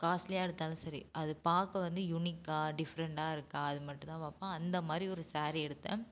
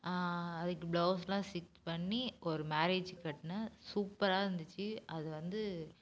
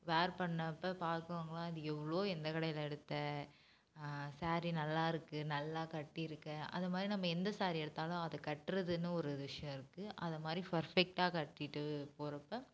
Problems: low volume